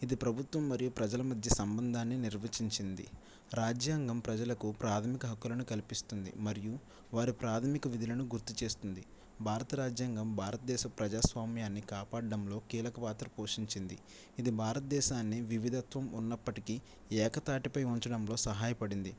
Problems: none marked